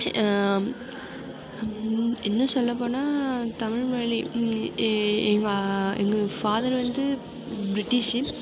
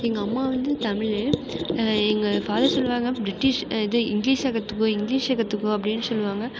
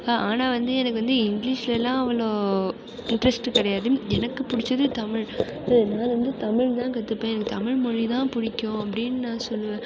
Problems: constant background noise